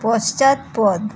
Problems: constant background noise, continuous background conversations